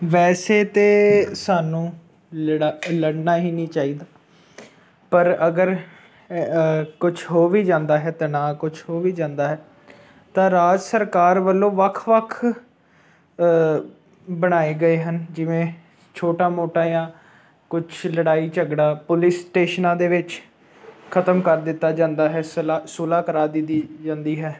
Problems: none marked